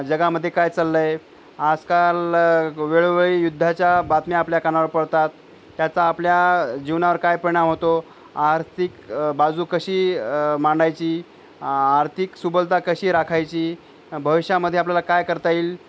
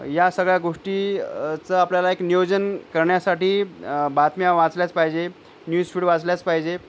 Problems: background sounds at intervals